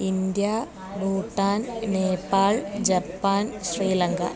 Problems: background conversations at intervals